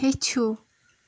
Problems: constant background noise